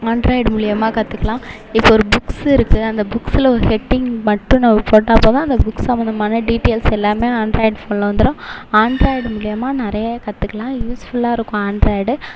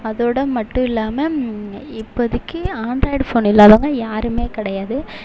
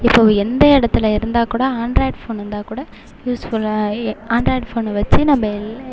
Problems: constant background noise